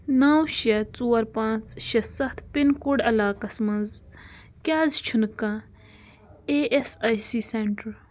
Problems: constant background noise